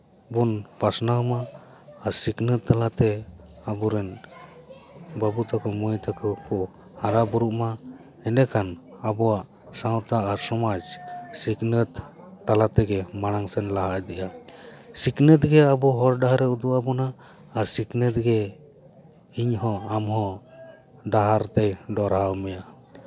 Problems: background conversations at intervals